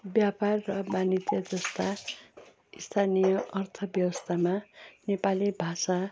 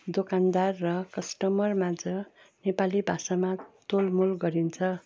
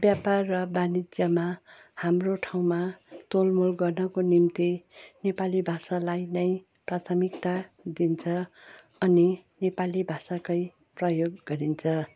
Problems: none marked